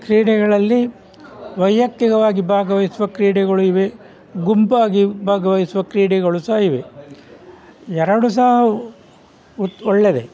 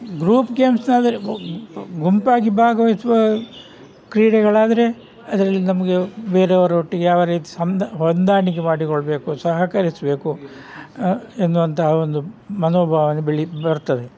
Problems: none marked